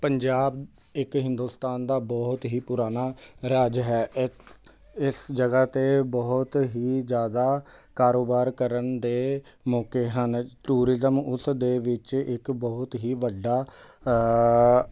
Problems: constant background noise